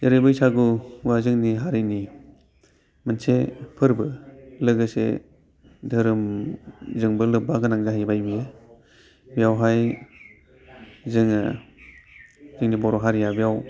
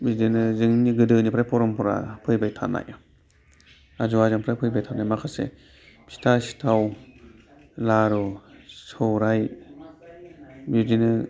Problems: constant background noise